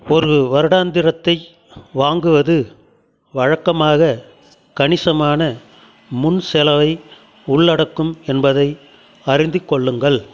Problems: continuous background conversations